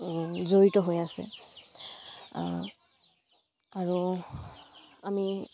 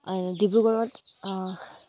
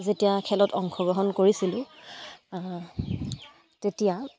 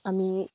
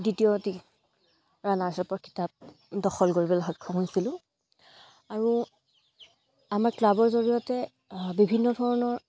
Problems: none marked